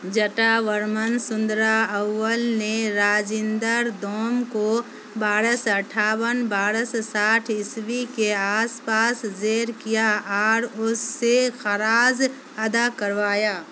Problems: constant background noise